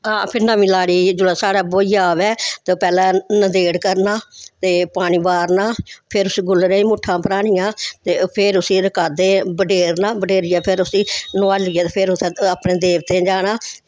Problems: background sounds at intervals, background conversations at intervals